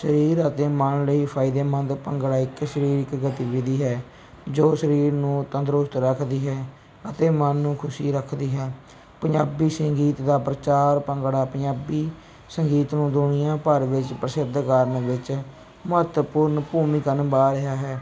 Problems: none marked